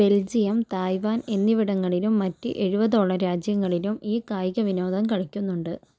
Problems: none marked